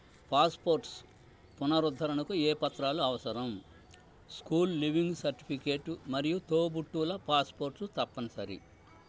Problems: low volume